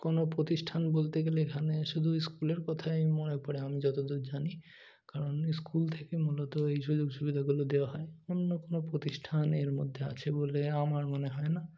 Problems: none marked